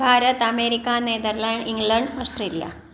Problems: background sounds at intervals